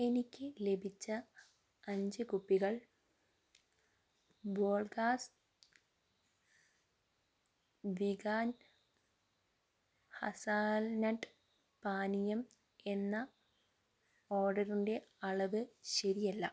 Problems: low volume